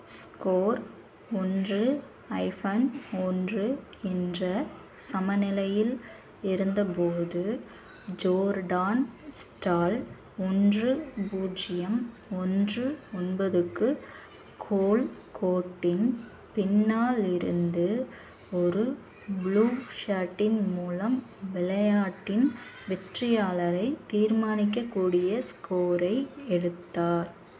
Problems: constant background noise, continuous background conversations